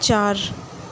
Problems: constant background noise